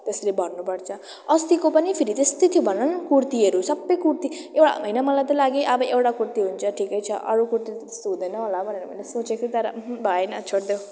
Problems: none marked